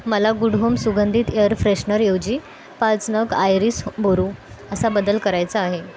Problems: constant background noise, continuous background conversations